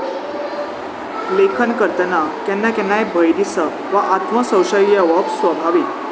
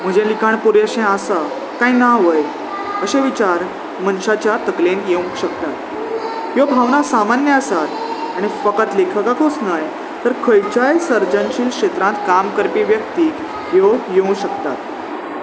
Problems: none marked